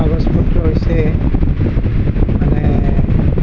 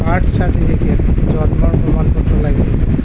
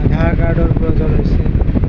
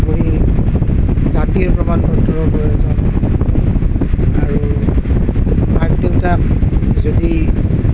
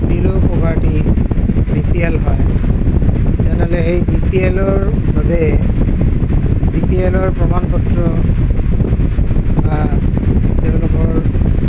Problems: constant background noise, low volume